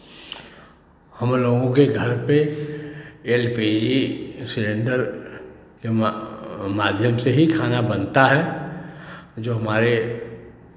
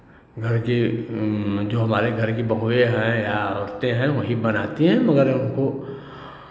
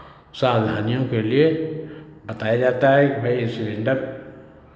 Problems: constant background noise, background conversations at intervals